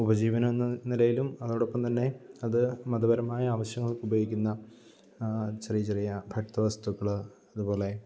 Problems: low volume